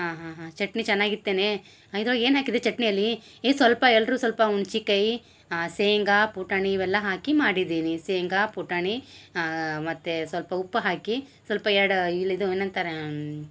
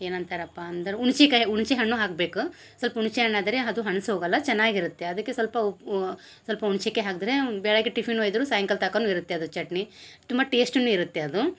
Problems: none marked